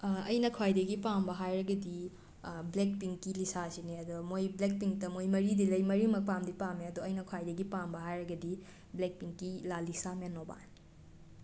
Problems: none marked